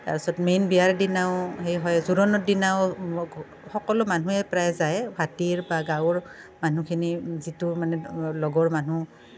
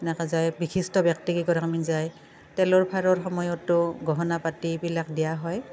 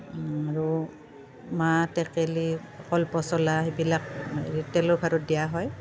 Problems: constant background noise, background conversations at intervals